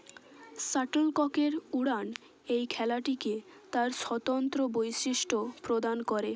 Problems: constant background noise, background conversations at intervals